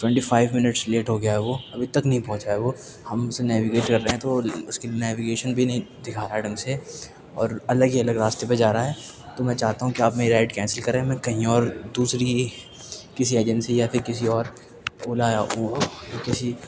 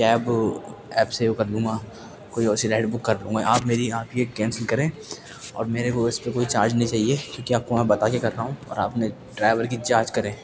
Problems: background sounds at intervals, background conversations at intervals